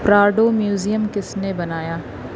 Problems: constant background noise